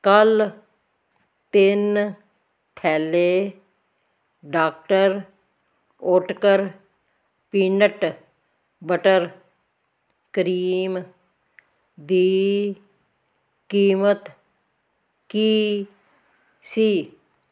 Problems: none marked